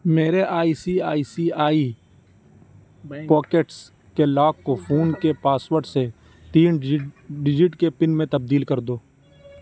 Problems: background sounds at intervals, background conversations at intervals